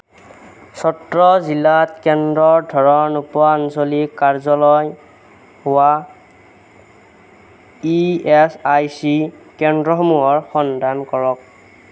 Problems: none marked